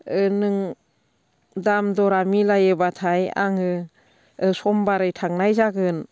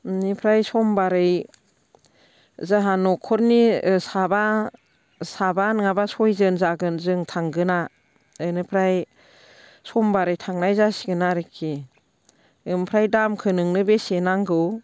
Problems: constant background noise